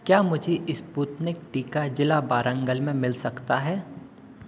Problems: none marked